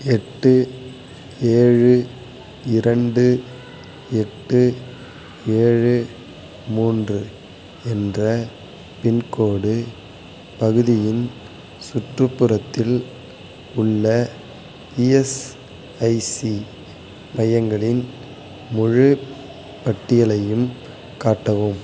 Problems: constant background noise